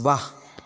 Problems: none marked